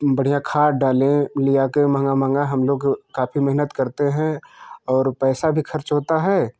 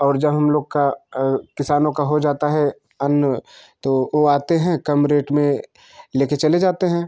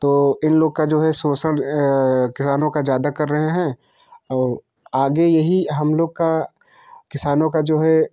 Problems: constant background noise